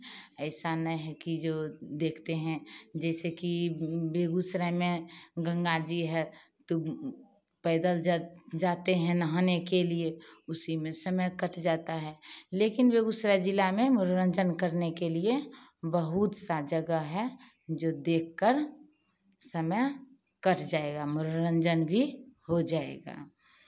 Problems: background sounds at intervals, background conversations at intervals